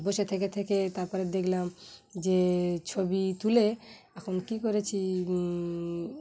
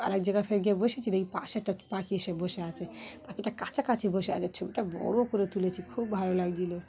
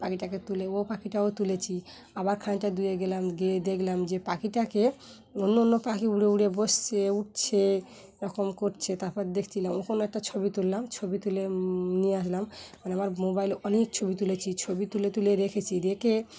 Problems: background sounds at intervals, continuous background conversations